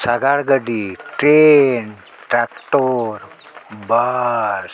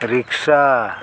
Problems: constant background noise